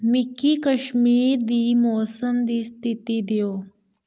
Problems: none marked